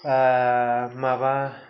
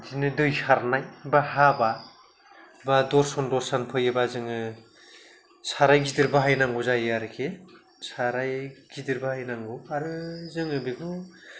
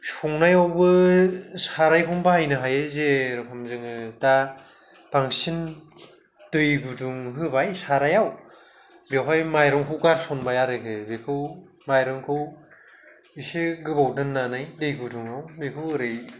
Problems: none marked